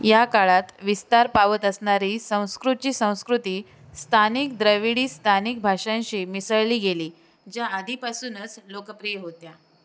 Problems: constant background noise